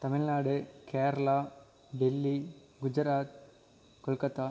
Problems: constant background noise